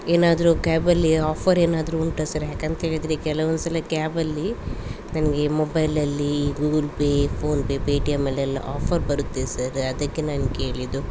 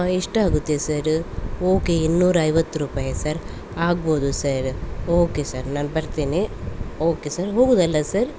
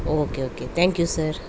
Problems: constant background noise